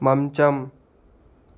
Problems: constant background noise